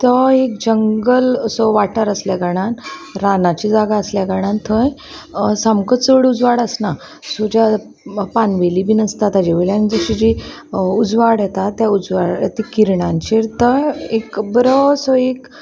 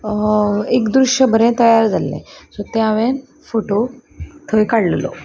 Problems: constant background noise, background conversations at intervals